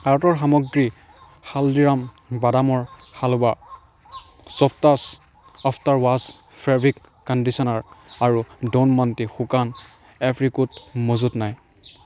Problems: background sounds at intervals